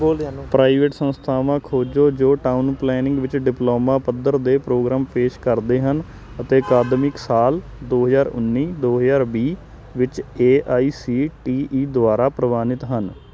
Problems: constant background noise